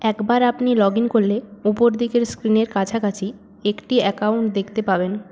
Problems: background sounds at intervals